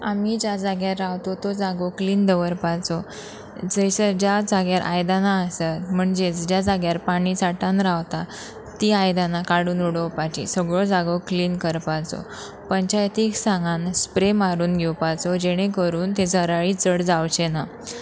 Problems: constant background noise